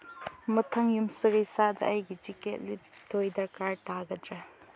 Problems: low volume